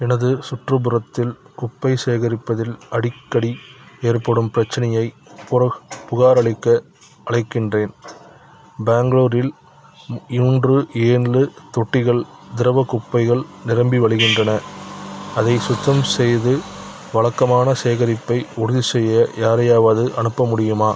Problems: background sounds at intervals